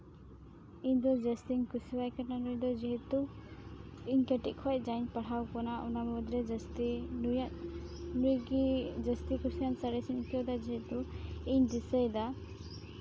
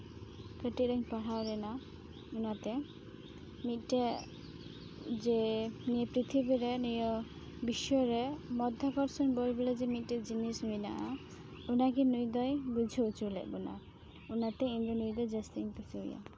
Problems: background sounds at intervals